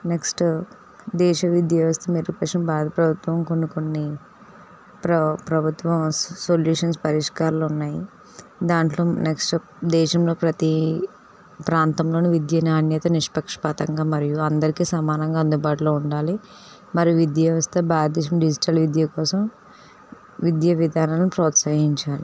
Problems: none marked